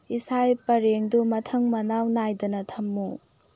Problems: low volume